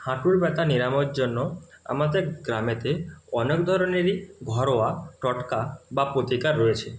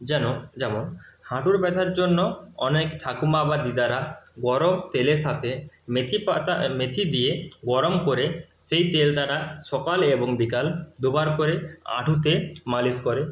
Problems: none marked